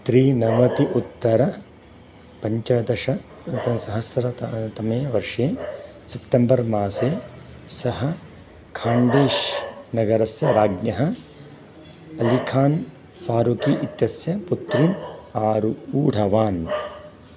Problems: background sounds at intervals